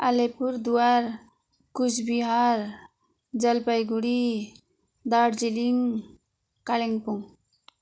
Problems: constant background noise, continuous background conversations